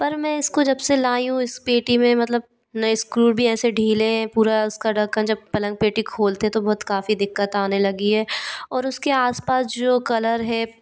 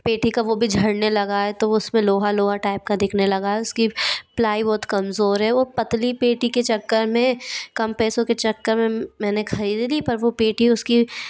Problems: none marked